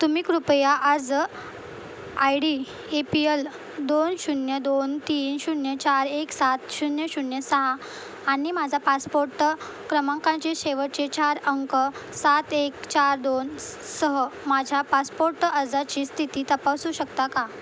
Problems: constant background noise